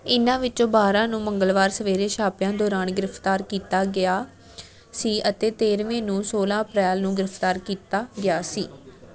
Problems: background sounds at intervals, background conversations at intervals